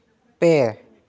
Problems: none marked